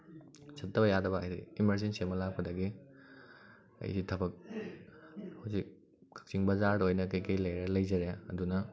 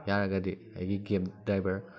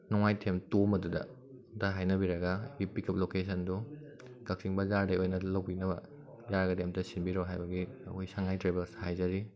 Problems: background conversations at intervals